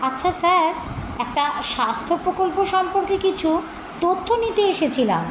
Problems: constant background noise